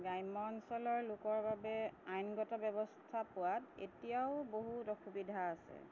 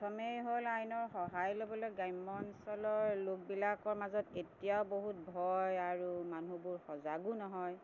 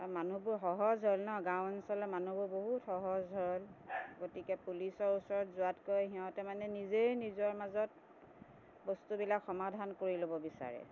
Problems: constant background noise